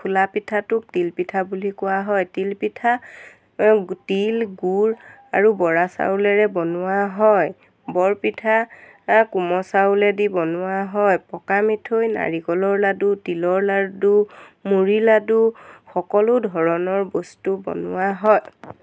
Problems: constant background noise